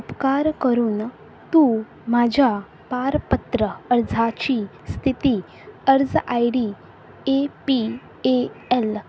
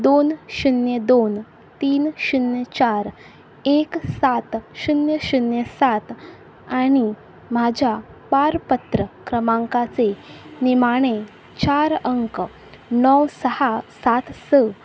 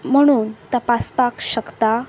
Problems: background sounds at intervals